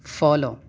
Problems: none marked